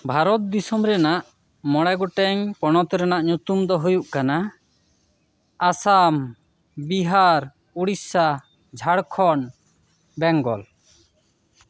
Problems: none marked